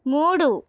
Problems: none marked